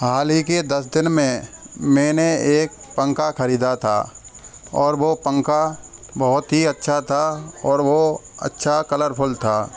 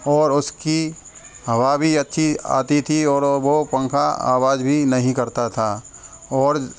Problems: background sounds at intervals